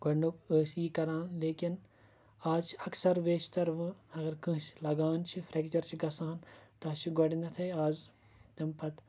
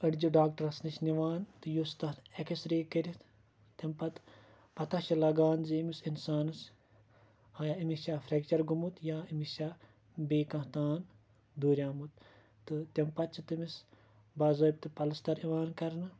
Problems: none marked